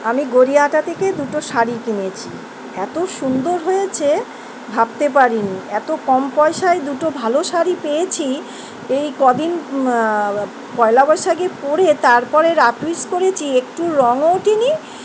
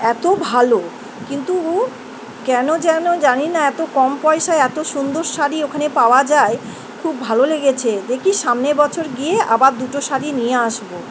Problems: constant background noise